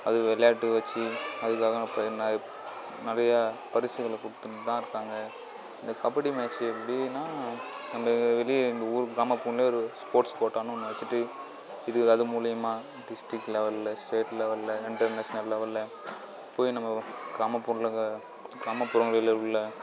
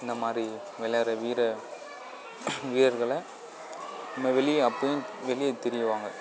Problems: none marked